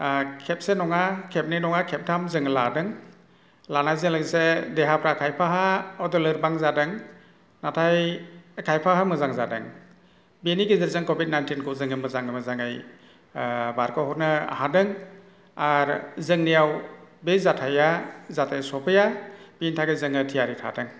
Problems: constant background noise